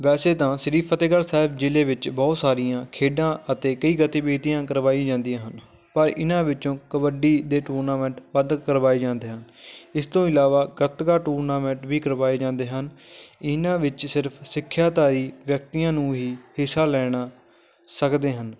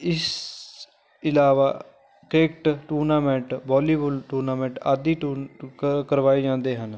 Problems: background conversations at intervals